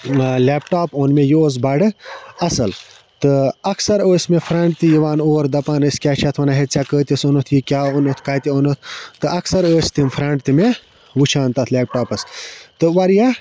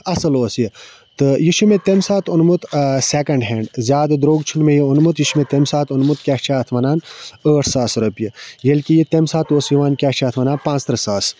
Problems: constant background noise